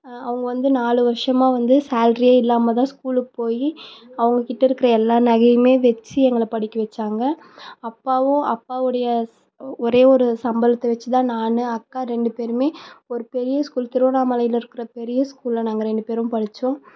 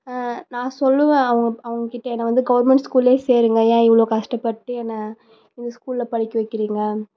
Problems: none marked